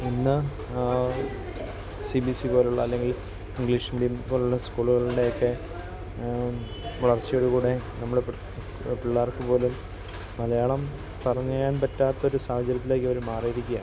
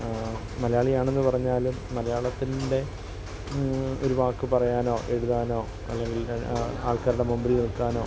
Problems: constant background noise, continuous background conversations